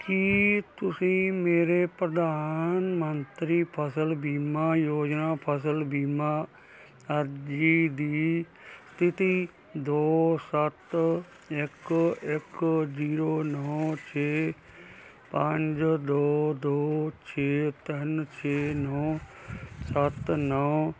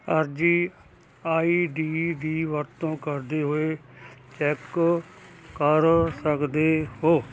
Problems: none marked